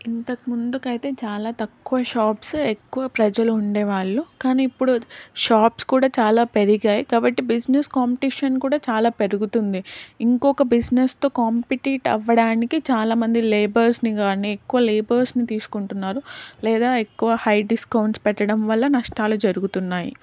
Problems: none marked